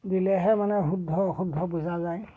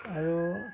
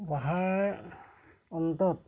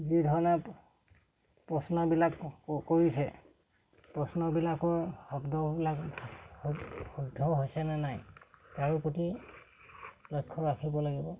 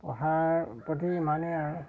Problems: background sounds at intervals